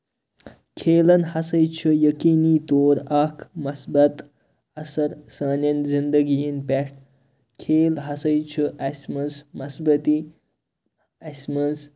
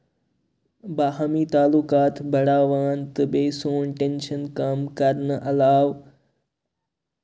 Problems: constant background noise